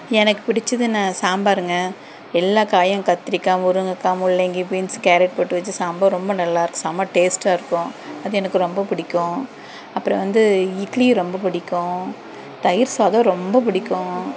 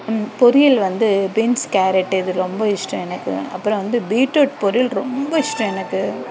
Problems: constant background noise, background conversations at intervals